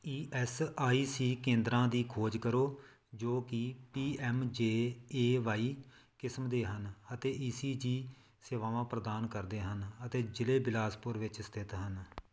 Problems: none marked